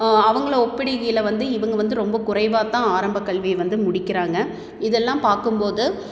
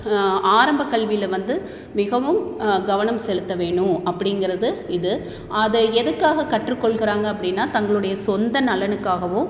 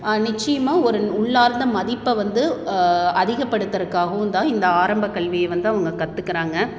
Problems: echo